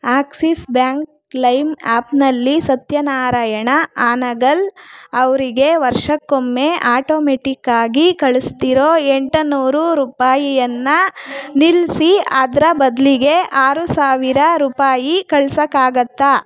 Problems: background sounds at intervals